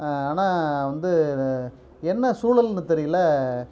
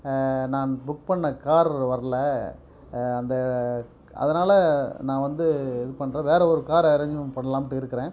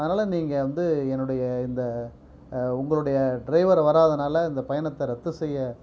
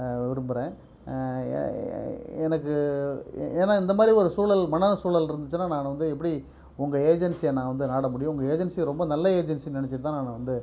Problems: background sounds at intervals